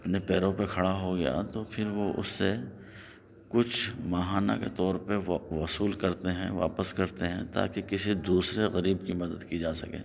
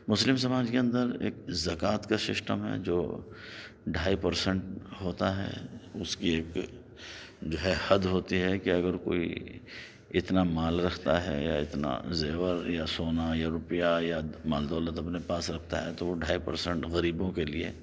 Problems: none marked